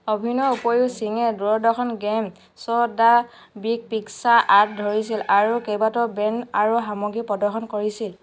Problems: constant background noise